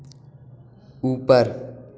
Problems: background sounds at intervals